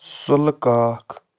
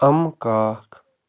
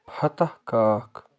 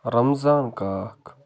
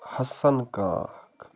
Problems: none marked